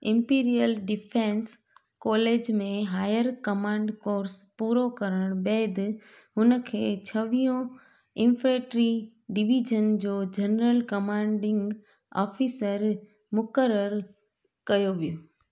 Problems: none marked